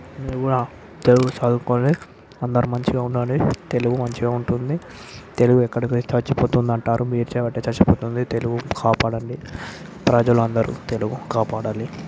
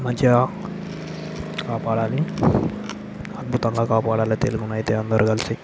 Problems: none marked